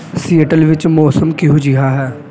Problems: background sounds at intervals